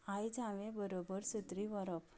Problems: none marked